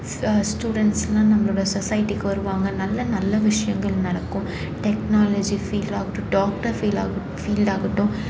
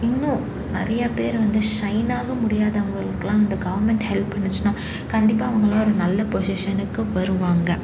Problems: constant background noise